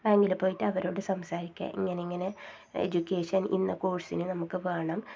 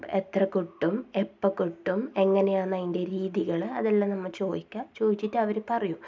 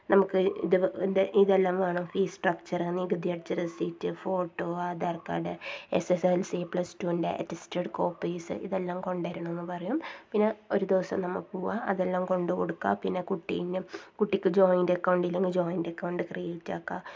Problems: low volume